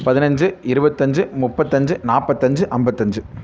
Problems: none marked